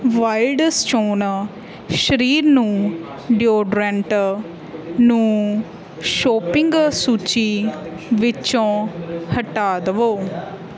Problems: continuous background conversations